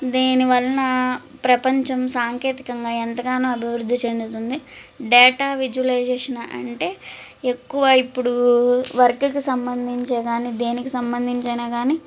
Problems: none marked